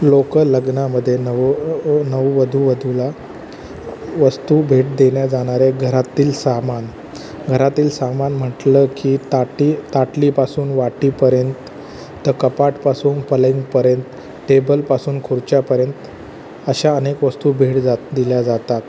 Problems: constant background noise